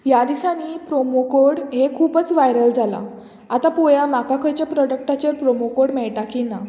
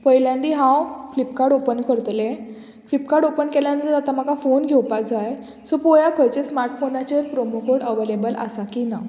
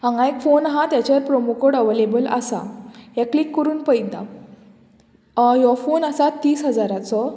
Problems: none marked